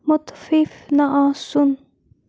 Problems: constant background noise